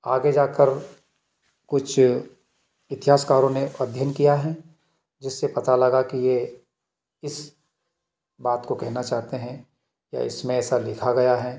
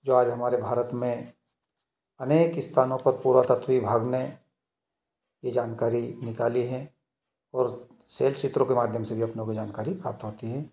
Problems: background sounds at intervals, echo